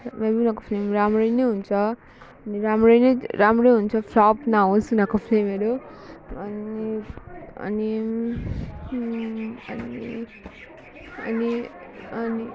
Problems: background sounds at intervals